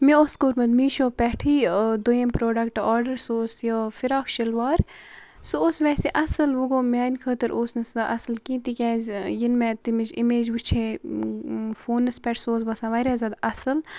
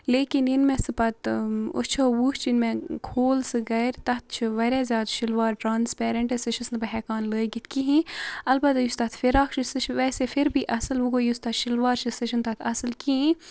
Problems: constant background noise